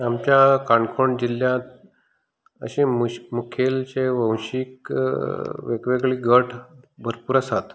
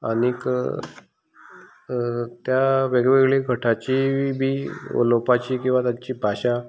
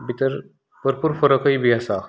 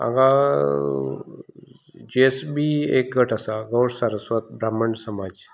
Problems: constant background noise